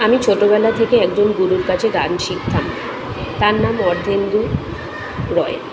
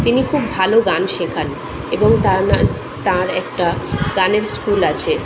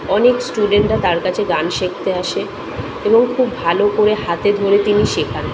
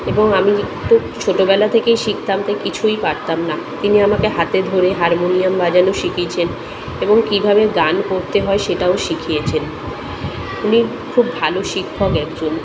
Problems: constant background noise, continuous background conversations